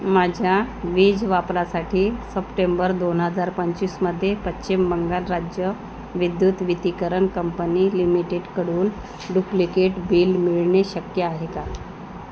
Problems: constant background noise